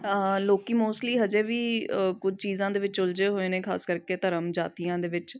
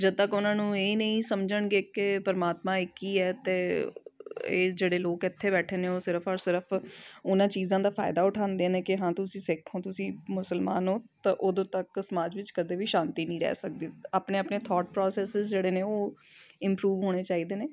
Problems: background sounds at intervals